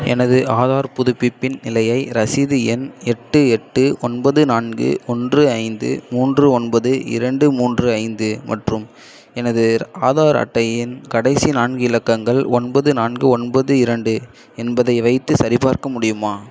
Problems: echo